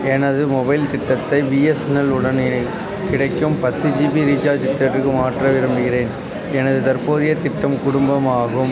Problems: constant background noise, continuous background conversations